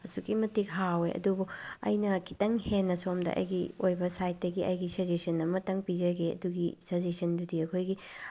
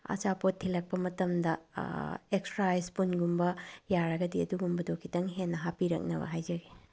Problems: low volume